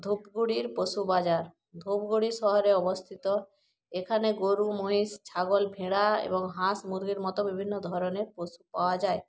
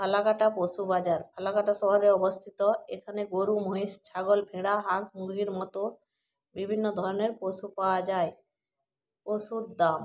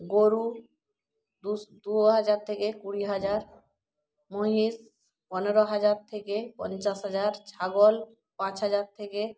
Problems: background conversations at intervals